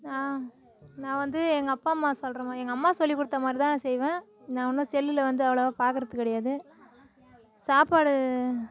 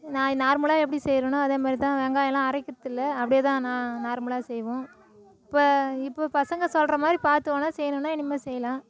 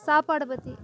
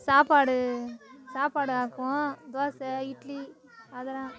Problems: continuous background conversations